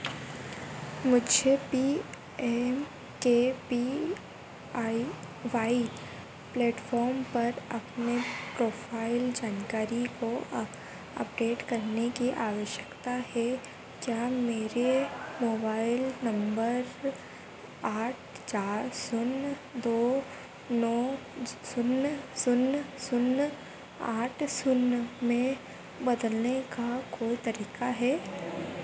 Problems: constant background noise